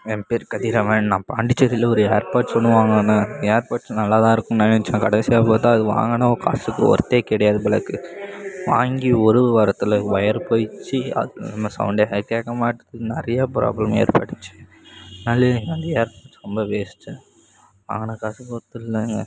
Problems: background conversations at intervals